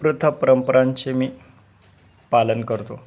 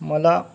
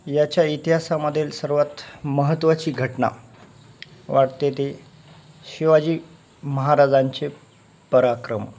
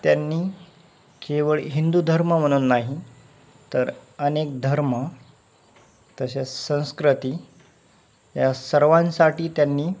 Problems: constant background noise